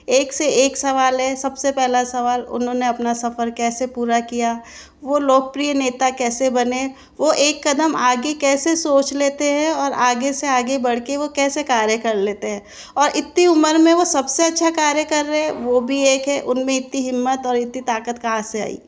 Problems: background sounds at intervals